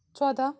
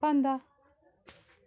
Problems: background sounds at intervals